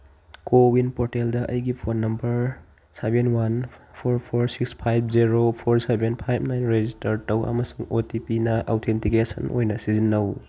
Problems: background sounds at intervals